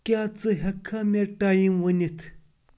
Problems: constant background noise